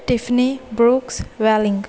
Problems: constant background noise, background conversations at intervals